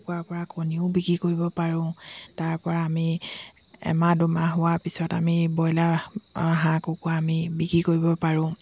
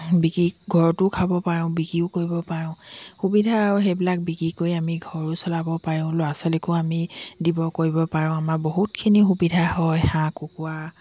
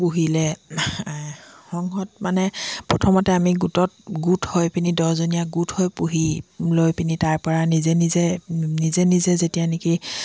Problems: continuous background conversations